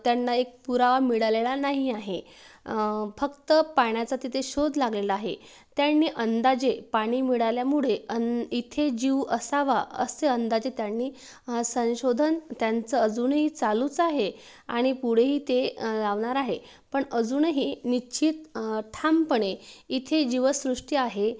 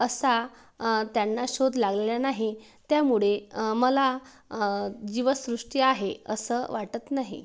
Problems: background sounds at intervals